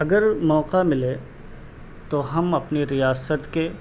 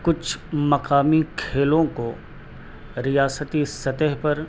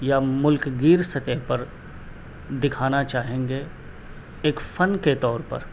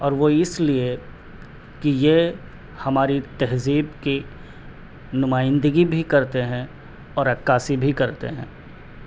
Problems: none marked